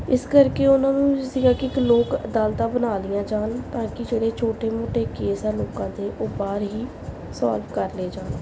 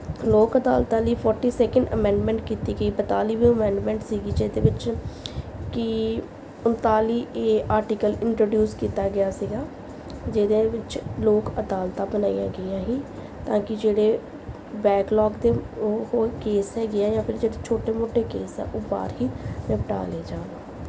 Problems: background sounds at intervals